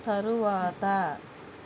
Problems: constant background noise